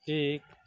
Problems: none marked